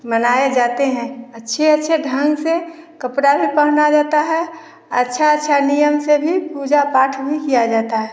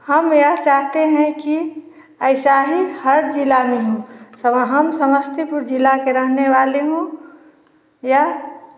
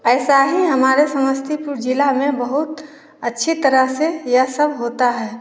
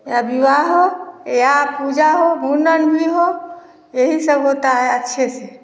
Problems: none marked